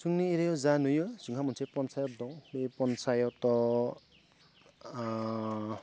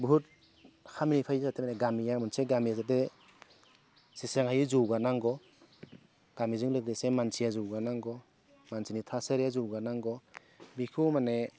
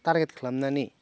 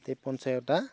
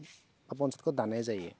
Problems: low volume